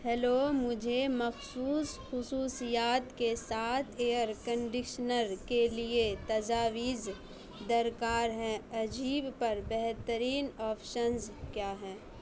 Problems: background sounds at intervals, background conversations at intervals, low volume